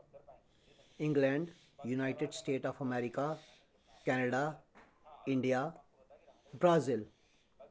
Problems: low volume